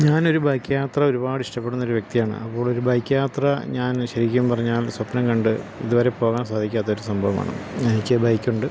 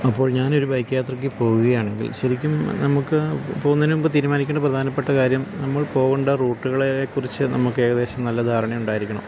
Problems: constant background noise